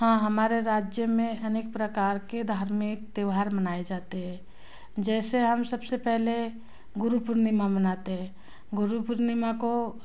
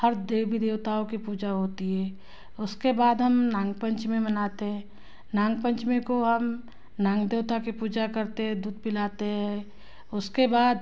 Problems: none marked